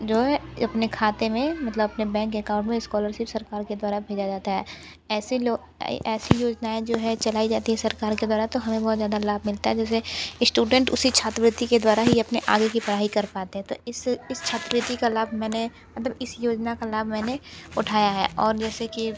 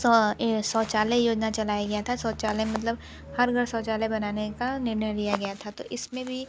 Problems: background sounds at intervals